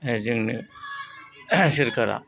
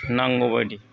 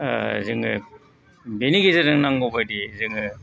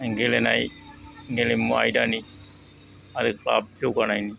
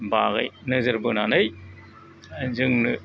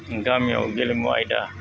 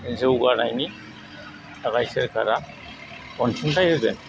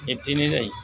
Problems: background sounds at intervals